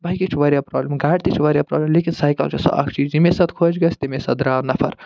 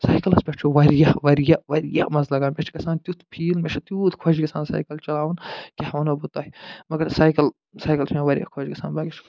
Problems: none marked